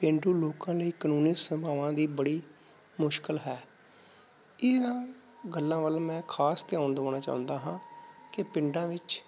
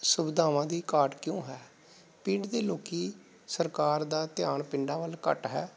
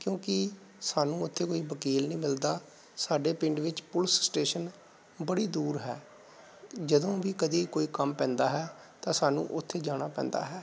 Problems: background sounds at intervals